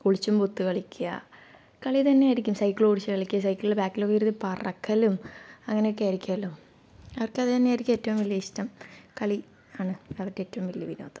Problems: low volume